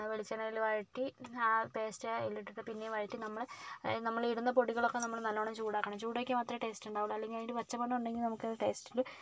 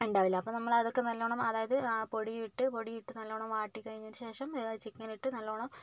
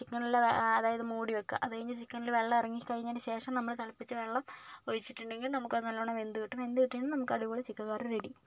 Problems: none marked